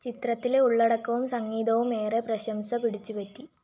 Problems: none marked